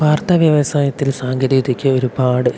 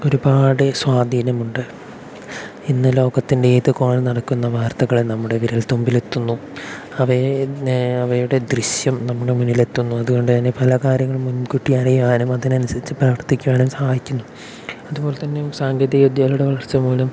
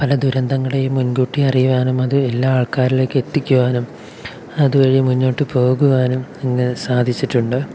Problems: none marked